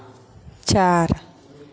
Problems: none marked